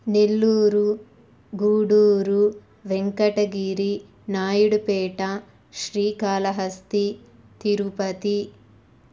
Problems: none marked